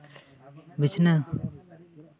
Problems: continuous background conversations